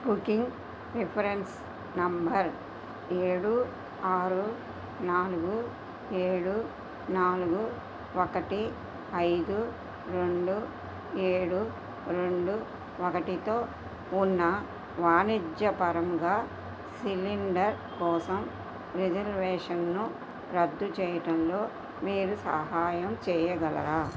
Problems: constant background noise